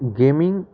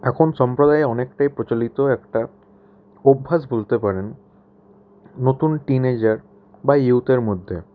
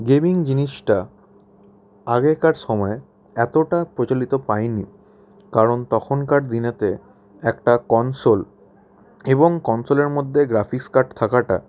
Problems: none marked